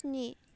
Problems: none marked